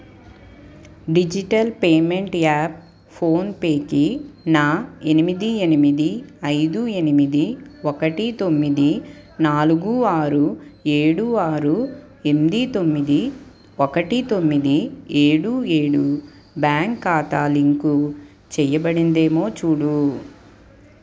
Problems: background sounds at intervals